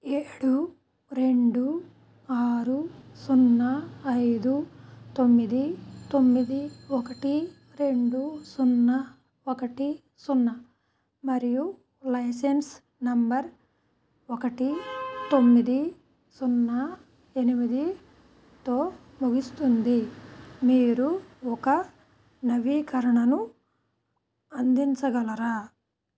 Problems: background sounds at intervals